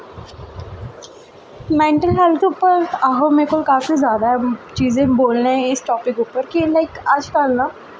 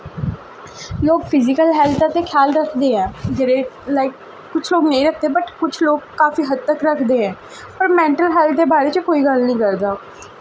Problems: none marked